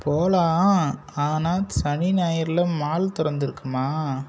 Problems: constant background noise